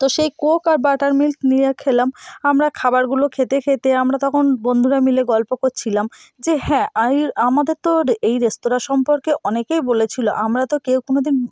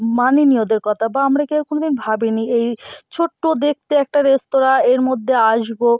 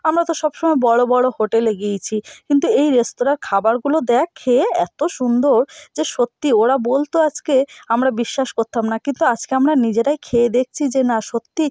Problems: constant background noise